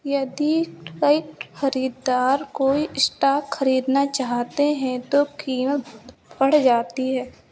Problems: none marked